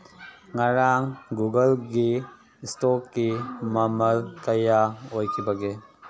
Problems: background sounds at intervals